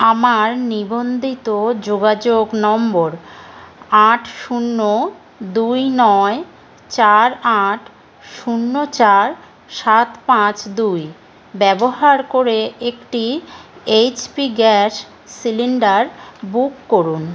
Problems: background sounds at intervals